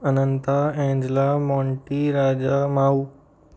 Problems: background sounds at intervals